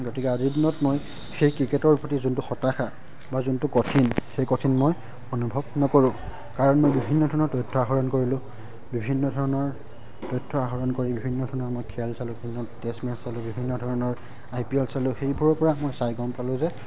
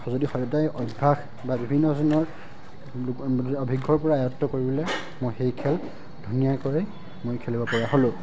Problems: background sounds at intervals